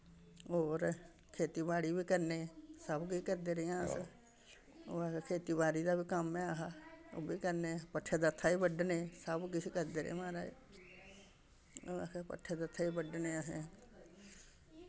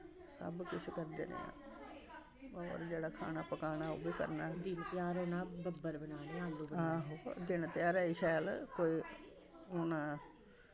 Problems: none marked